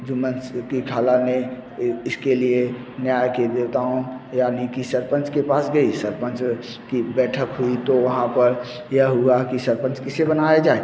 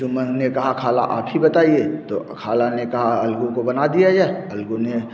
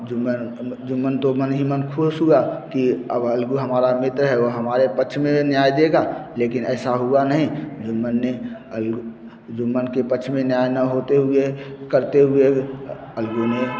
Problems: constant background noise